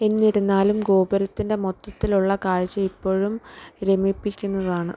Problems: background sounds at intervals